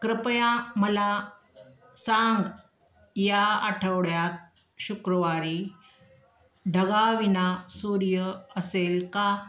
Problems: constant background noise, background conversations at intervals